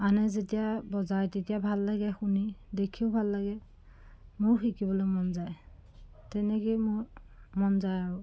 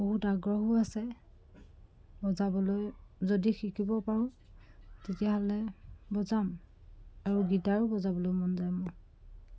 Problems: background sounds at intervals